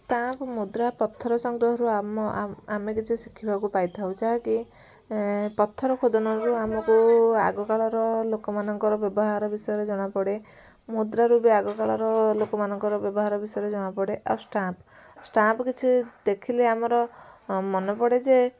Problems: constant background noise, continuous background conversations